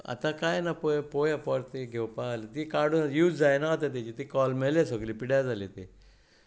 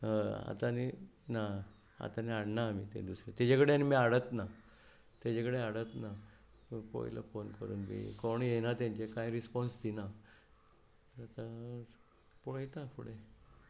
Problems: background sounds at intervals